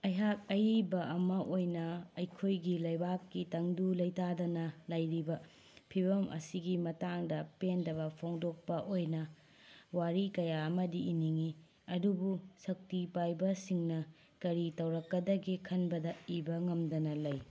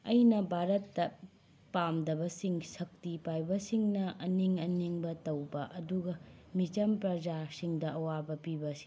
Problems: background sounds at intervals